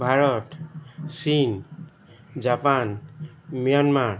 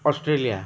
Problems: background sounds at intervals